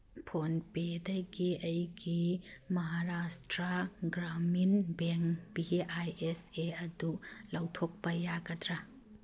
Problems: none marked